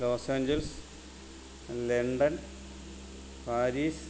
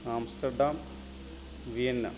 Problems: constant background noise